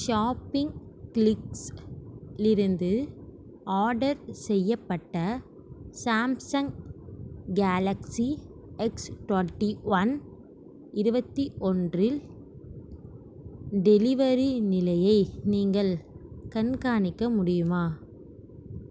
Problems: background sounds at intervals